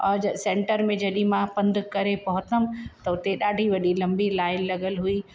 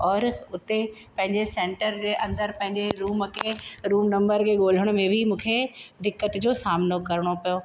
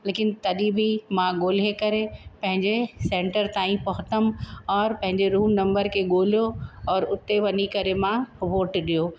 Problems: constant background noise